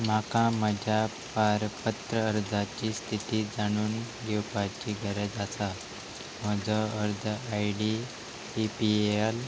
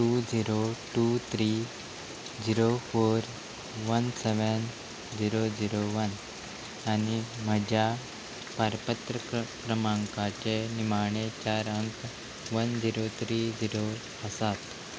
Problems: constant background noise